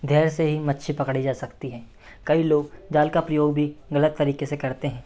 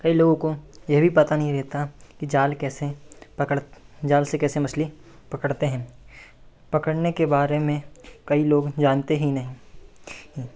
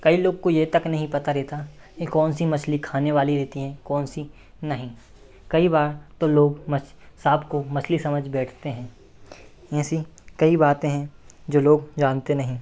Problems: none marked